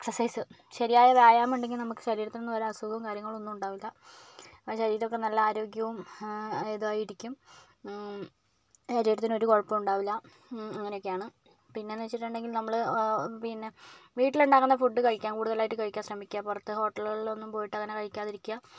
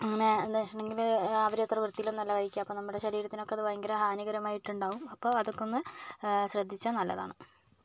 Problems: none marked